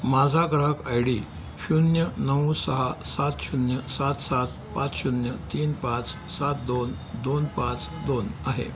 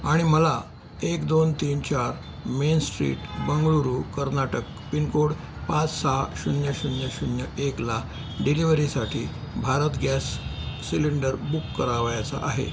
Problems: constant background noise